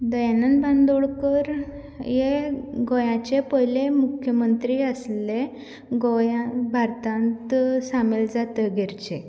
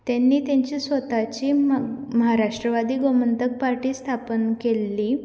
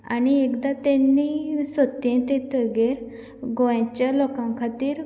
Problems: background sounds at intervals